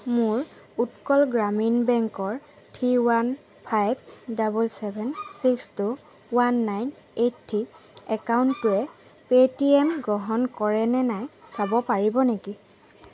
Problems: constant background noise